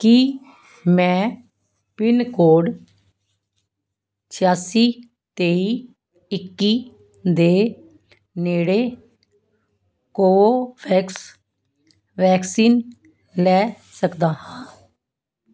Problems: none marked